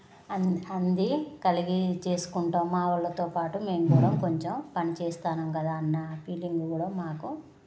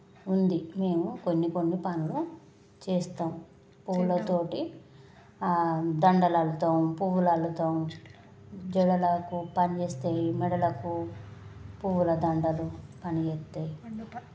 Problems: background conversations at intervals